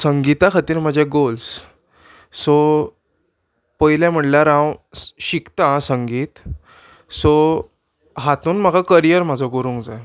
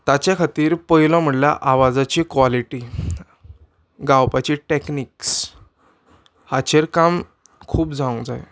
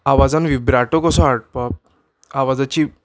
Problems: background sounds at intervals